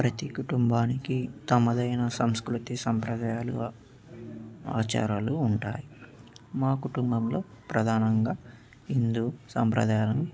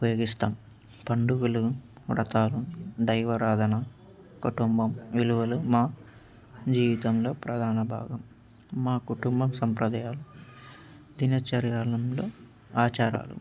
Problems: background sounds at intervals